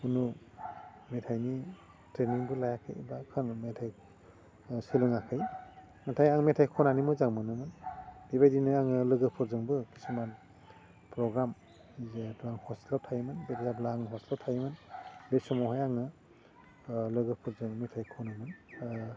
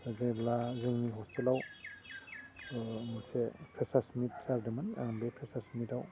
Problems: low volume